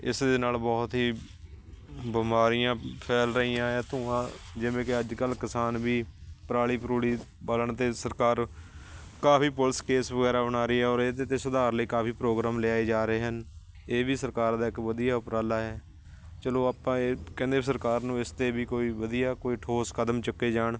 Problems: constant background noise